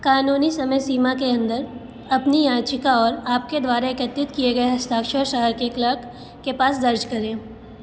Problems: constant background noise